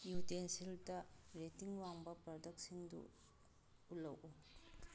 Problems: background sounds at intervals